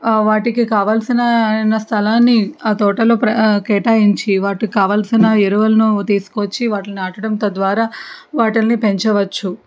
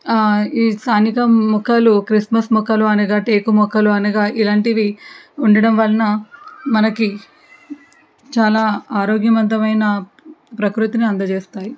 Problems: background conversations at intervals